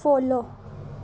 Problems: background sounds at intervals